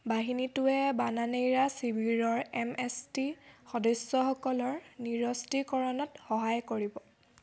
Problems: none marked